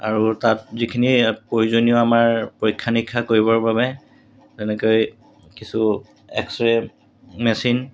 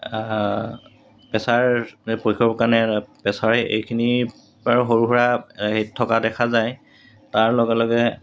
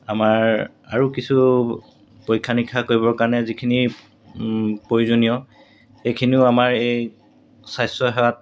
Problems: background sounds at intervals